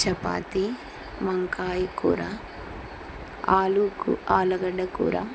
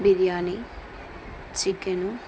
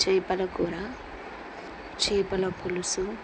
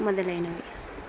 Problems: constant background noise